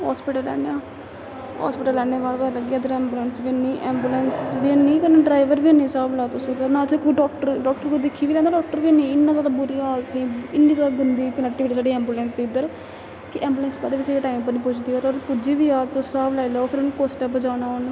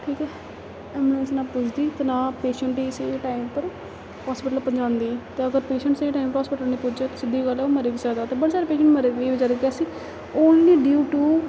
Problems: constant background noise